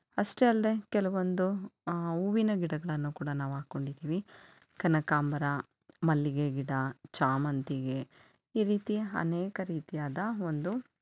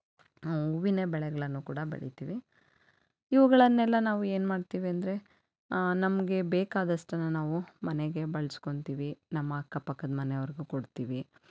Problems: none marked